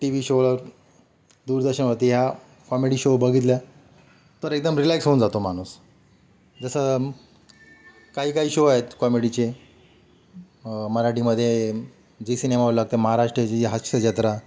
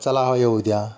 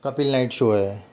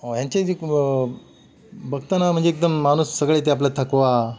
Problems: background sounds at intervals